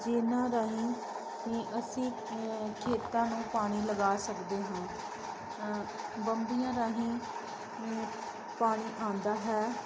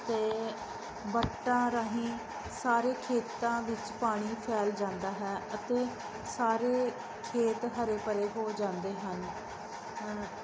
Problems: constant background noise